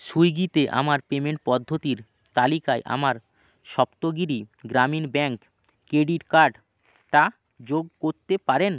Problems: none marked